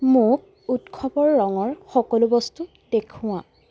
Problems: background sounds at intervals